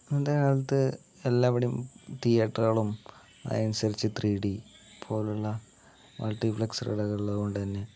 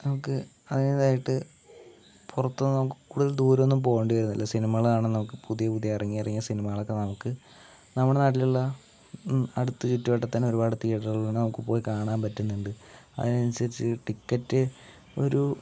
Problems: low volume